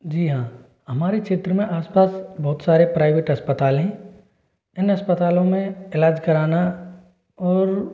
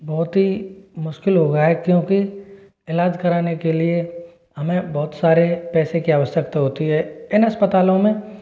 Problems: none marked